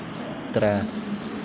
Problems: constant background noise